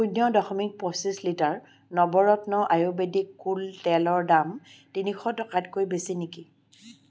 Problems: none marked